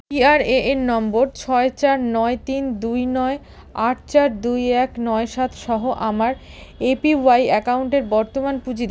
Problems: background sounds at intervals